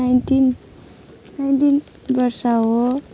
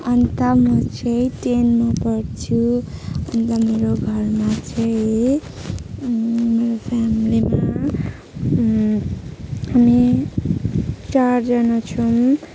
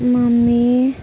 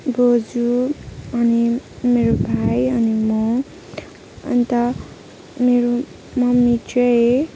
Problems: background sounds at intervals